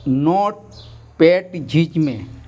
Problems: none marked